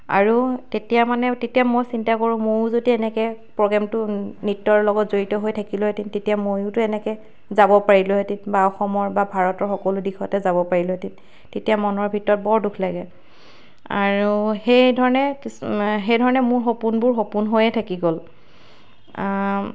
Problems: background sounds at intervals